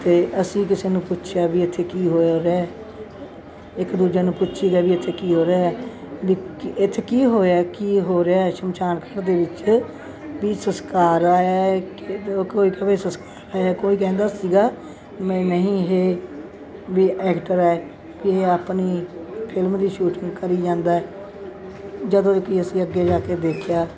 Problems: none marked